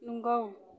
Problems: background sounds at intervals